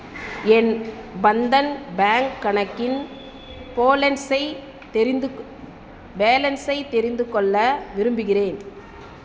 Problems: background sounds at intervals